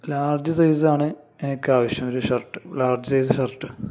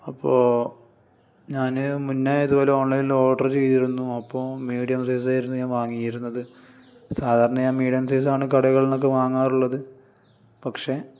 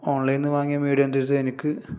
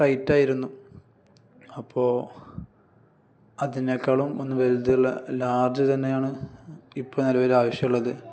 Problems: none marked